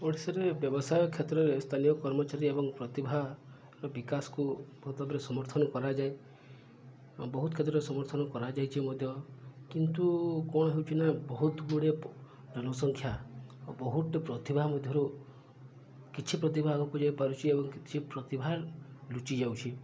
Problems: low volume